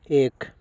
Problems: background sounds at intervals